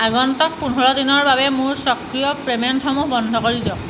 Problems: background sounds at intervals